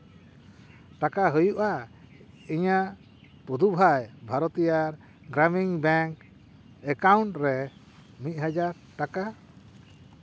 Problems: constant background noise